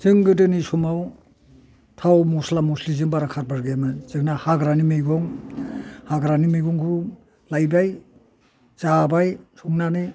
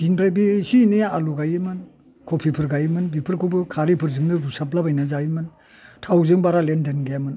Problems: none marked